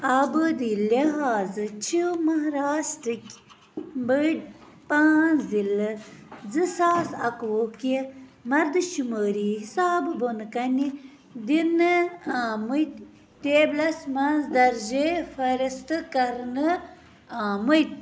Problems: none marked